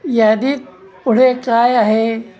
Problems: background conversations at intervals